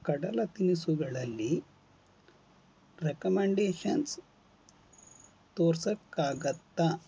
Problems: none marked